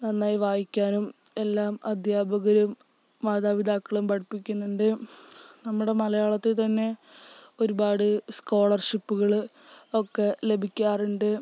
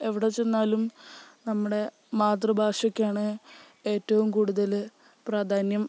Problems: none marked